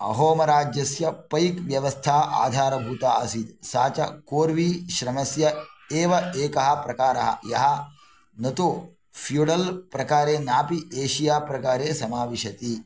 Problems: background sounds at intervals